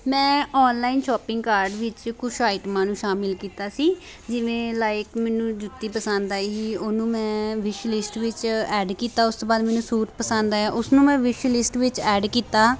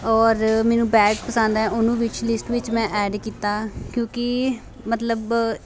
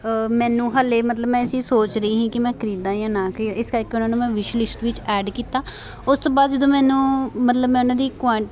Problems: none marked